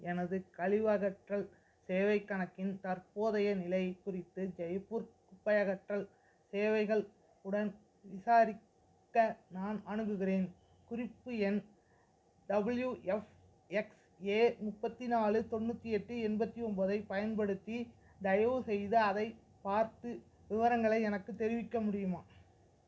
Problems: background sounds at intervals